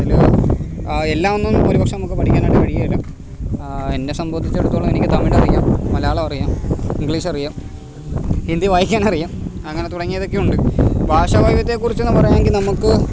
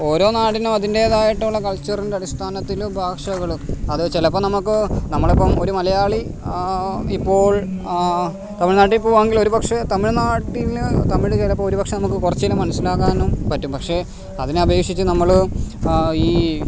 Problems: constant background noise